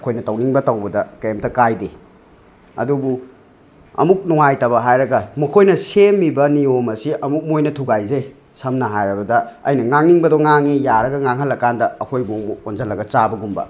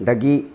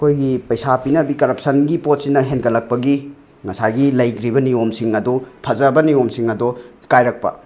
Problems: constant background noise